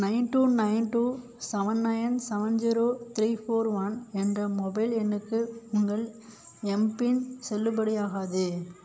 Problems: background sounds at intervals